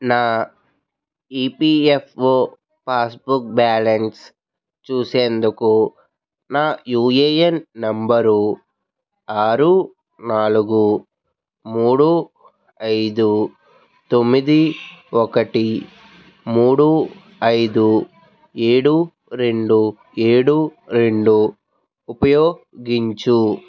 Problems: background sounds at intervals, background conversations at intervals